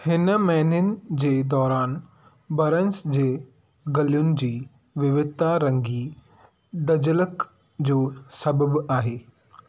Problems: none marked